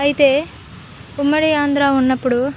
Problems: constant background noise